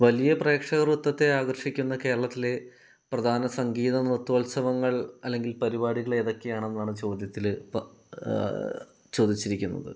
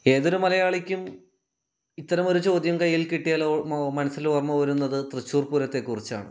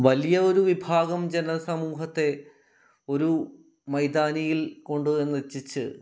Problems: none marked